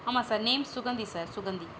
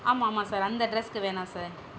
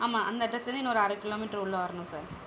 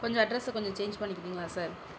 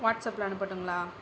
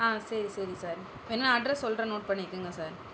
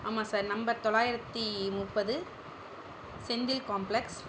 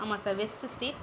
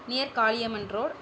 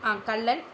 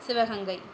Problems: background sounds at intervals